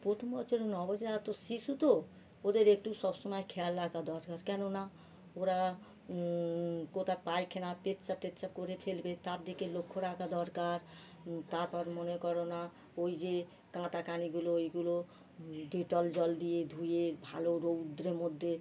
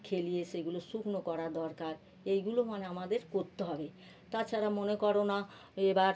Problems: constant background noise